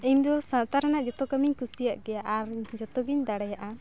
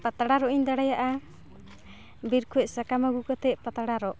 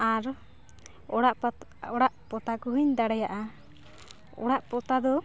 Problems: none marked